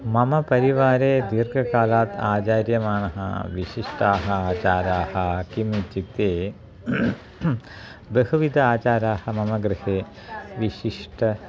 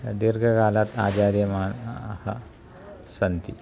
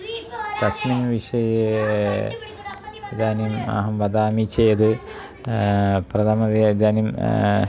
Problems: continuous background conversations